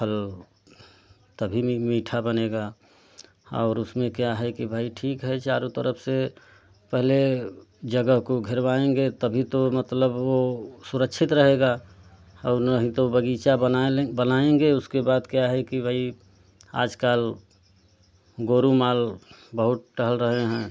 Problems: constant background noise